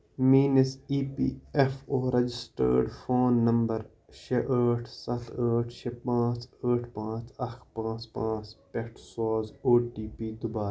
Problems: none marked